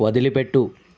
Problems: none marked